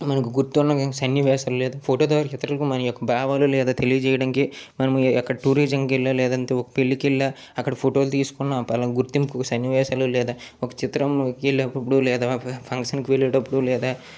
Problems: none marked